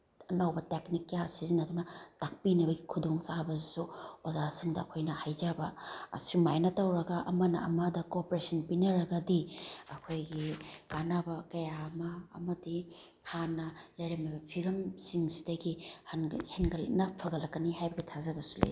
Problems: background sounds at intervals